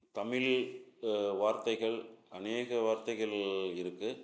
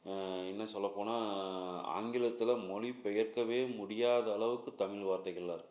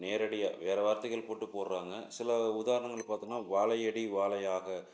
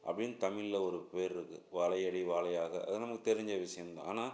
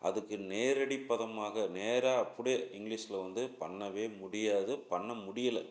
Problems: low volume